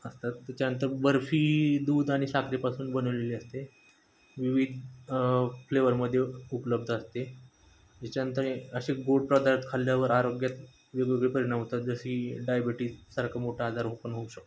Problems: none marked